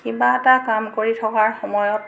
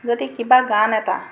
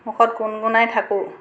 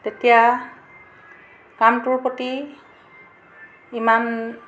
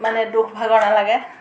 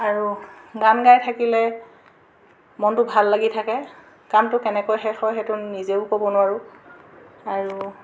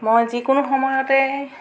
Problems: constant background noise